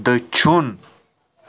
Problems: constant background noise